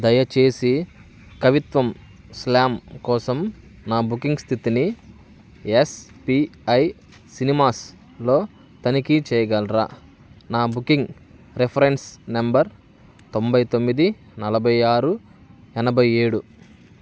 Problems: none marked